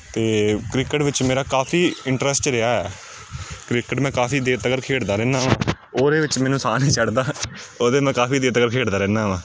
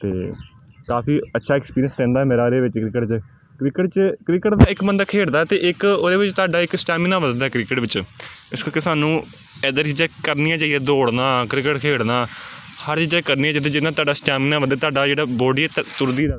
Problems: constant background noise